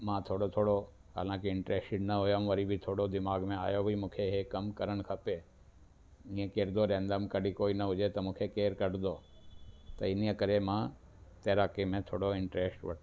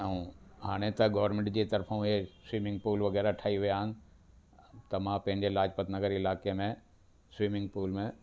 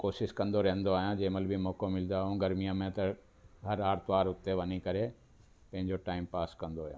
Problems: constant background noise